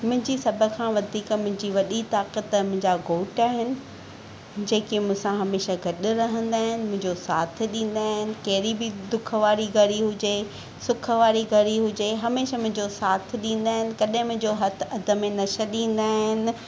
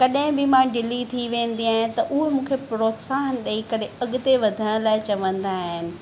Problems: none marked